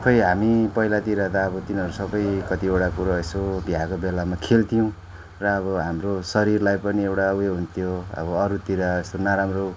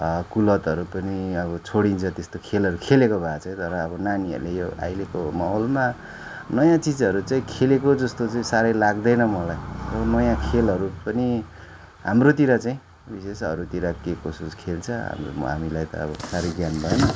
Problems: background sounds at intervals